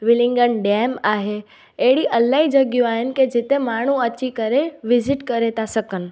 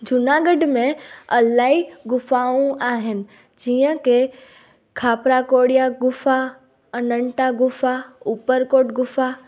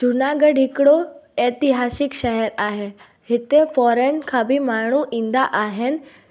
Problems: none marked